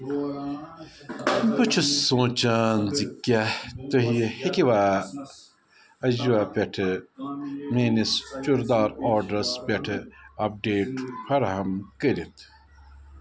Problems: constant background noise